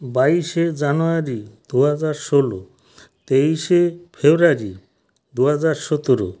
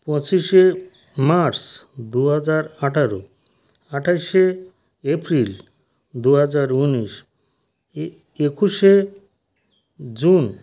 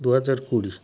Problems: none marked